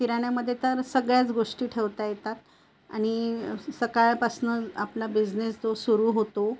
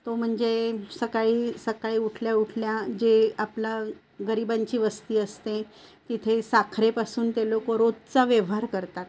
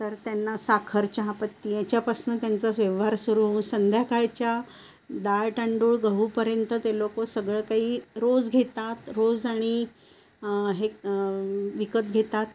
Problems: constant background noise